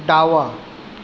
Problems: none marked